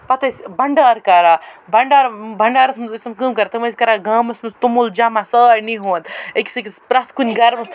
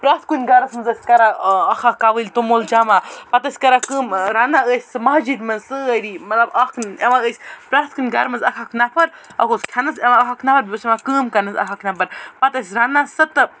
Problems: none marked